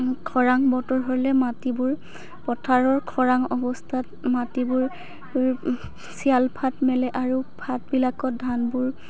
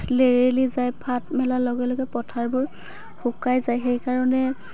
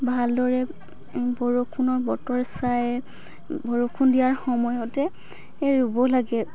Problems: background sounds at intervals, background conversations at intervals